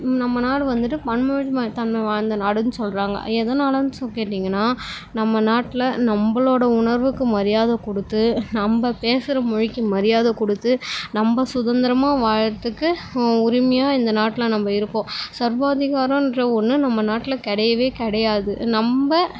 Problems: constant background noise